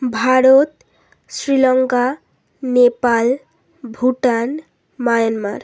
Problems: constant background noise